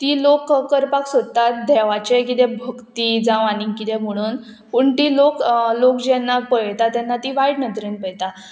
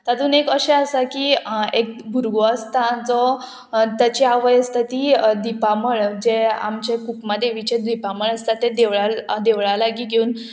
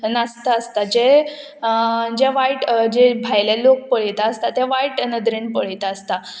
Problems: none marked